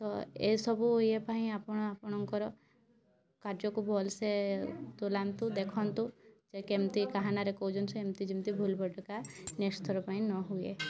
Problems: low volume